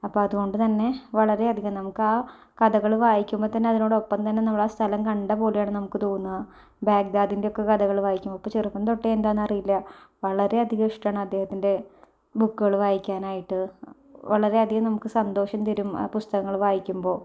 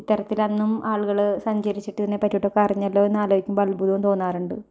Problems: low volume